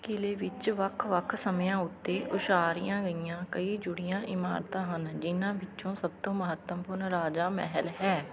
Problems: constant background noise, background conversations at intervals